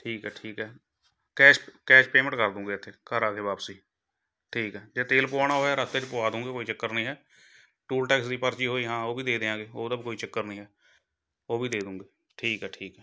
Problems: background sounds at intervals